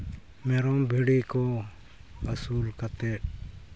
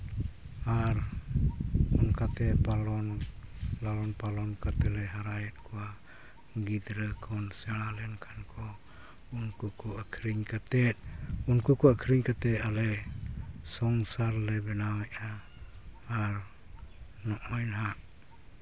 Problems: none marked